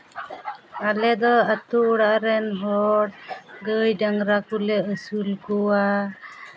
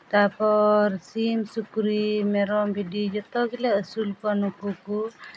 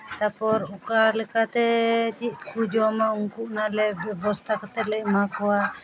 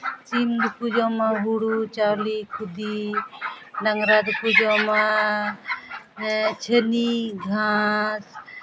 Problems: none marked